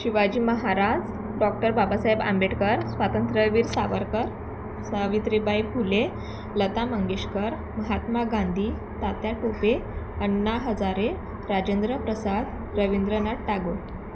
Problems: constant background noise, continuous background conversations